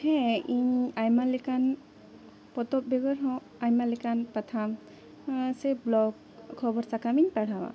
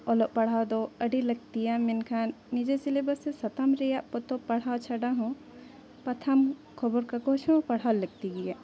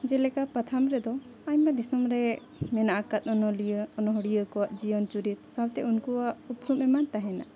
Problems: continuous background conversations